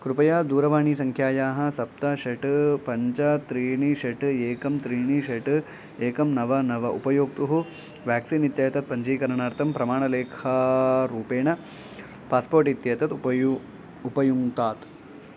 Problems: background sounds at intervals